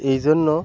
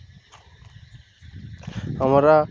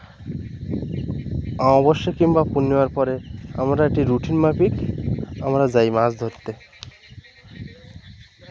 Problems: constant background noise